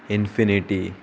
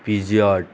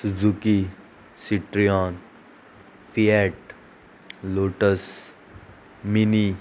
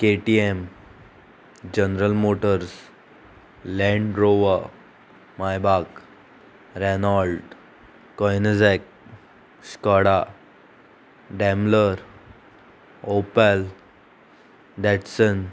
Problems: constant background noise